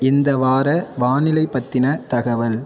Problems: constant background noise